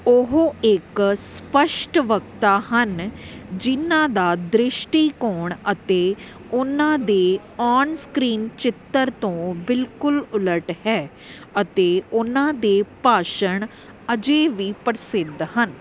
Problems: none marked